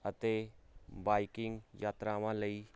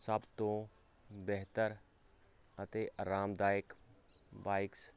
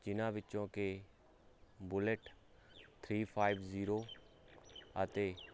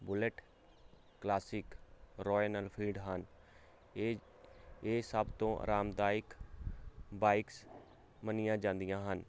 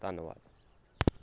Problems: constant background noise